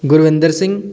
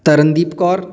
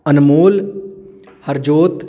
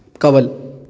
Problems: background conversations at intervals